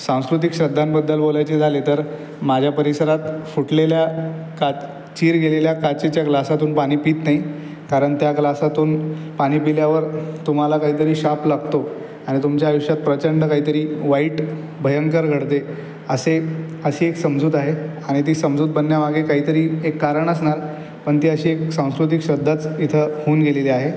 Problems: constant background noise